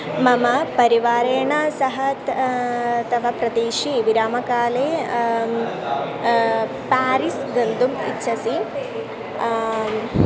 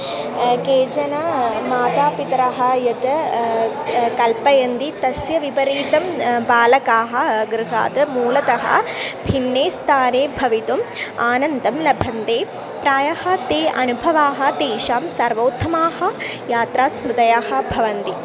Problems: constant background noise, continuous background conversations